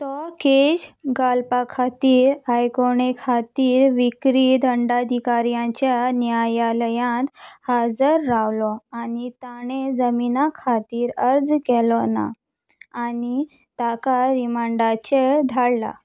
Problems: none marked